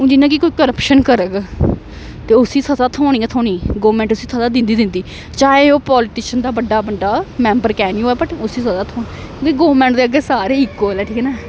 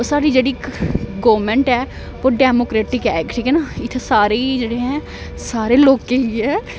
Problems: constant background noise